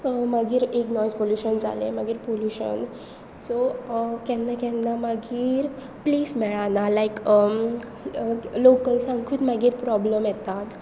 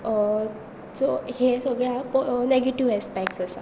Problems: none marked